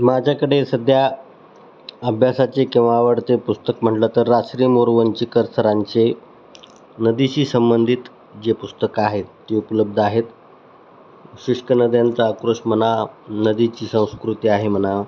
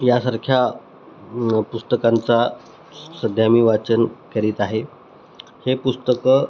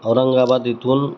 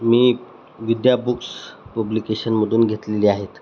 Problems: constant background noise